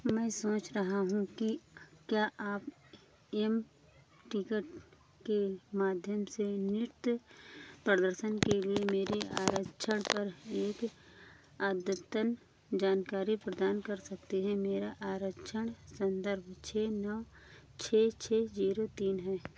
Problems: background sounds at intervals